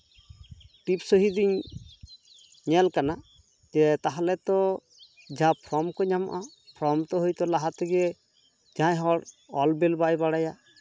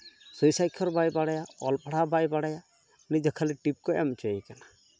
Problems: none marked